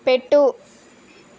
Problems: constant background noise